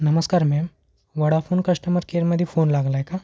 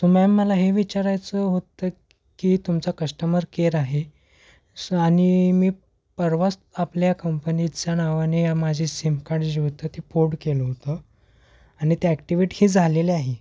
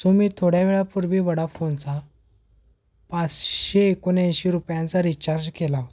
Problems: none marked